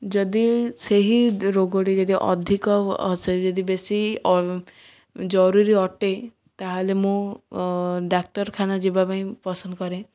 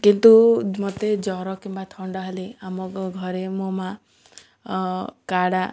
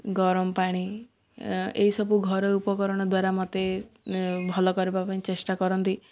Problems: none marked